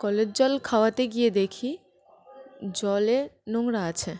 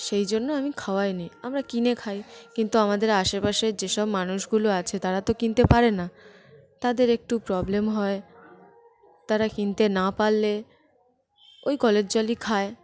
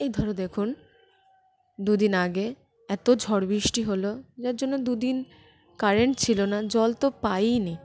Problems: constant background noise, continuous background conversations